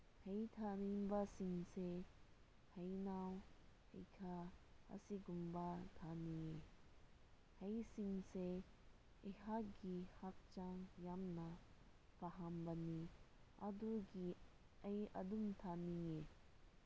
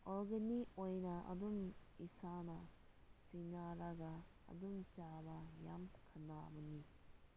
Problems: low volume